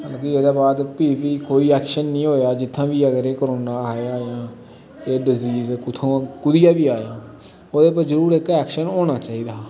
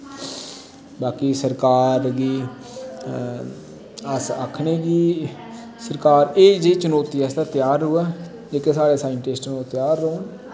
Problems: constant background noise, background conversations at intervals